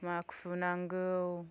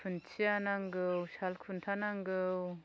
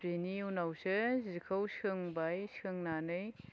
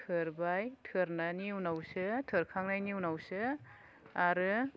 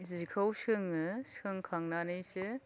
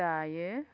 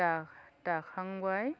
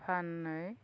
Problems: none marked